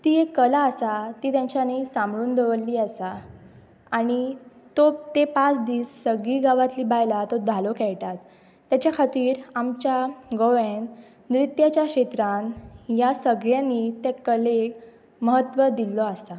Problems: constant background noise